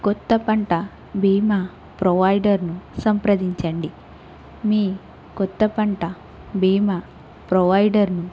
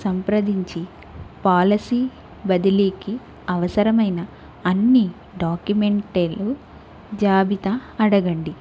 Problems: constant background noise